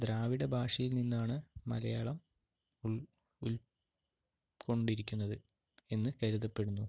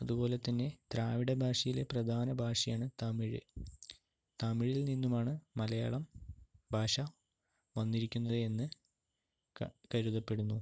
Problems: low volume